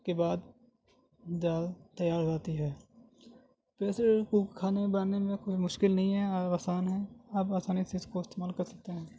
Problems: constant background noise